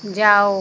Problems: none marked